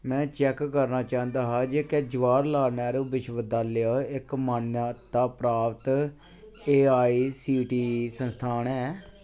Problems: constant background noise